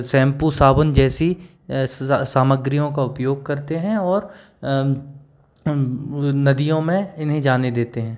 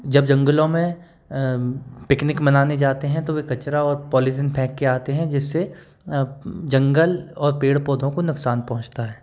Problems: background sounds at intervals